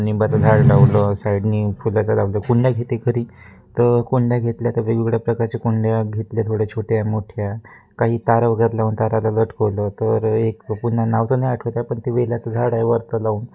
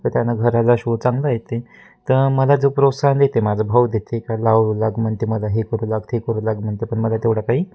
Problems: constant background noise